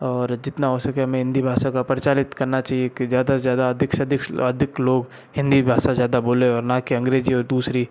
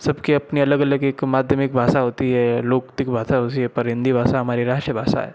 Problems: background sounds at intervals